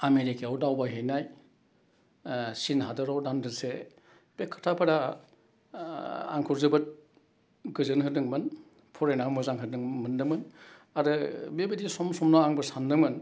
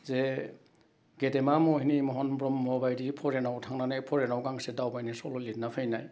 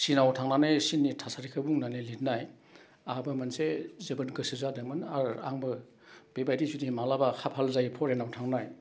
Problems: none marked